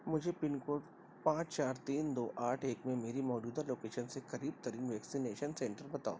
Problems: constant background noise, low volume